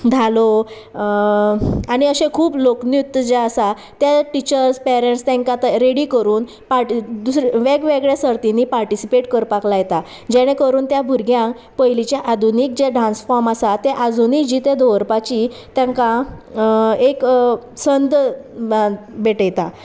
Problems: constant background noise